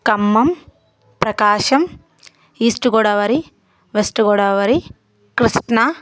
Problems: constant background noise, continuous background conversations